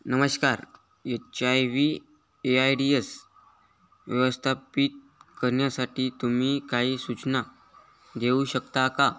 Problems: constant background noise